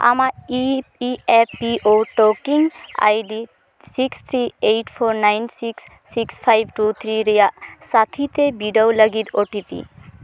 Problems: constant background noise